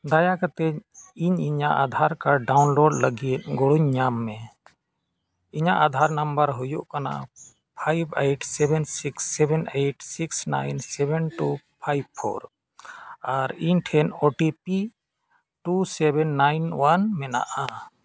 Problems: background sounds at intervals